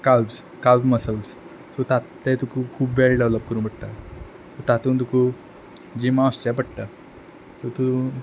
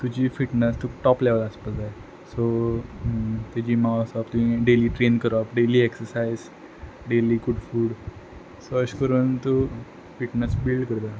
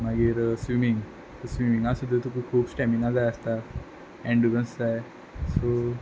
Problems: background sounds at intervals